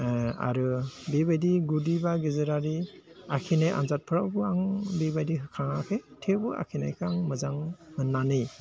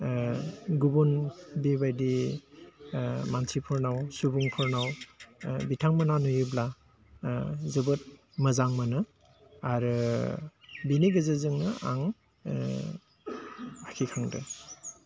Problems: low volume